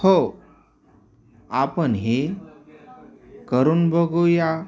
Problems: none marked